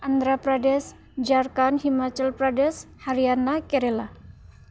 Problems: constant background noise